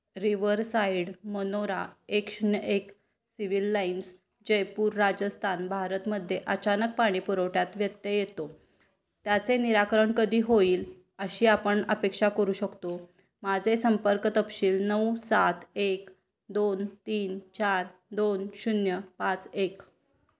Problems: none marked